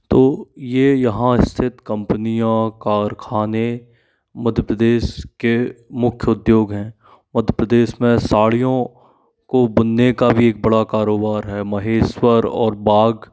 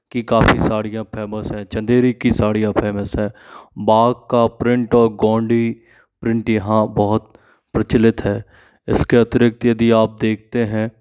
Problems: constant background noise